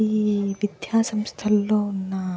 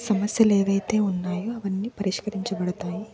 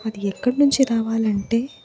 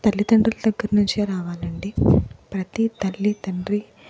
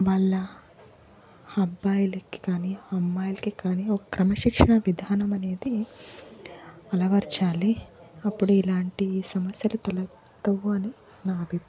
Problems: background sounds at intervals, background conversations at intervals